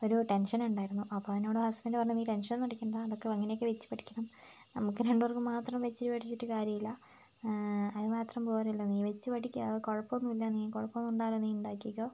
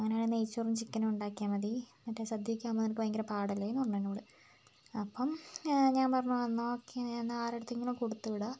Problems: low volume